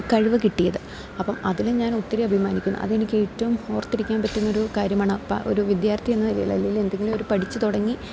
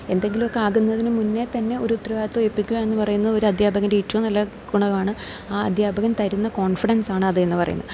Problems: none marked